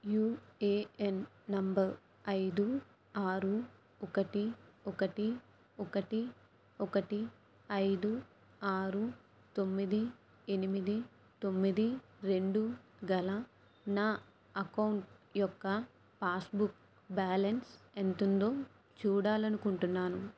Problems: low volume